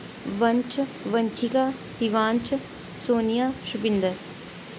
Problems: constant background noise